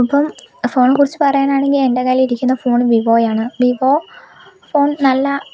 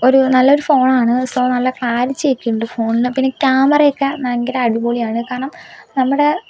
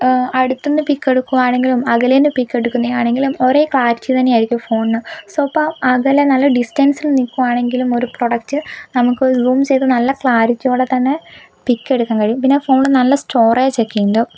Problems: background sounds at intervals